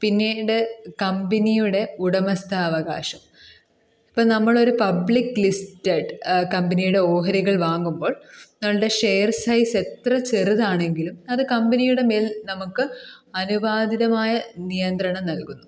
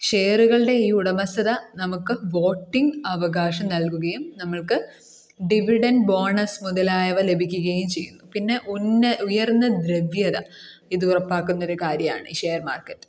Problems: none marked